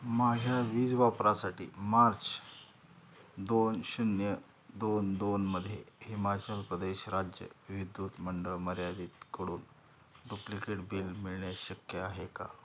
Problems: constant background noise, background conversations at intervals